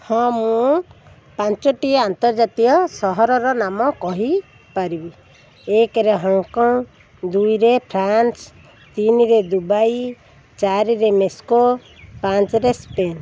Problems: none marked